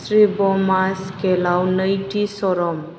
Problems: constant background noise